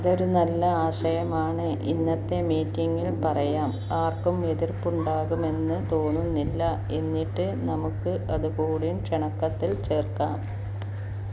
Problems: none marked